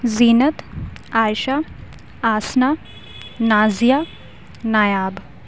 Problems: none marked